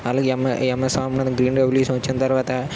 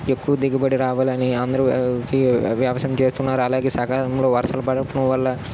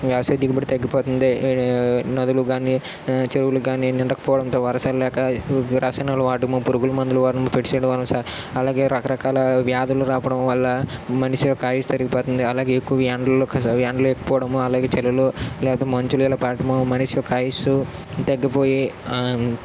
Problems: constant background noise